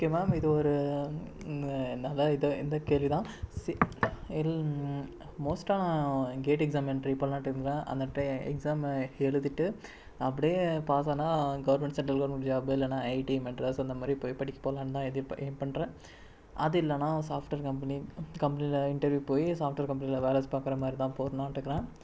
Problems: low volume